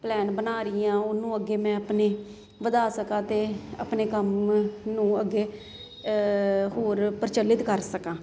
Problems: constant background noise